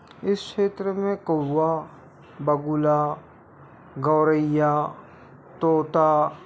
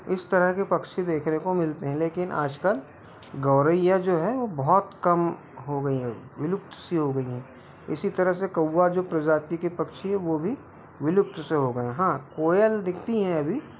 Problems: none marked